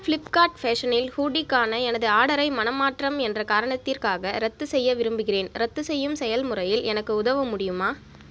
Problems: none marked